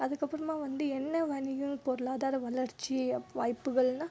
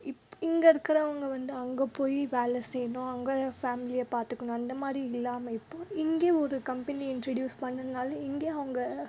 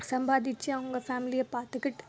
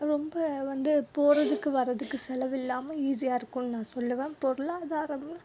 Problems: low volume